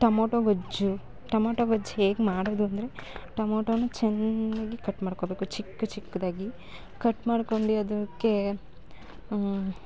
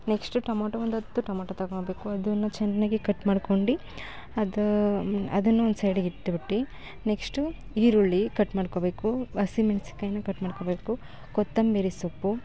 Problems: none marked